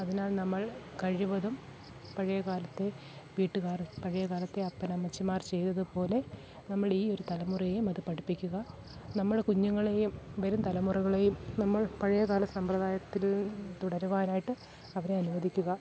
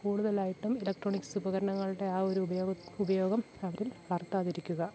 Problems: background sounds at intervals, low volume